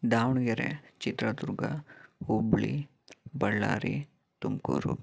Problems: background sounds at intervals